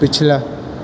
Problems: constant background noise